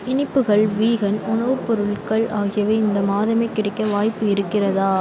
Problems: background sounds at intervals